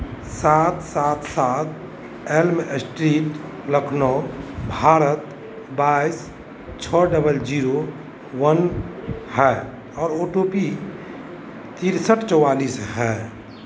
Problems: constant background noise, continuous background conversations